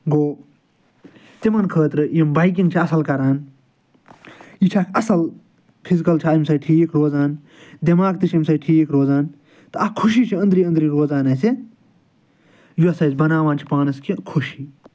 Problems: none marked